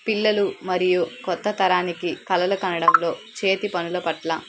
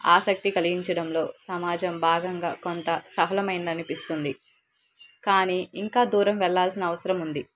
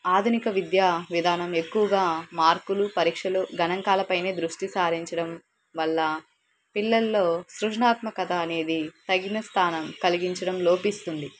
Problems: background sounds at intervals